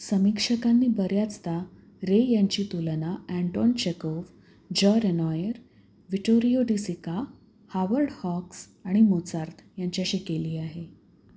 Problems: background sounds at intervals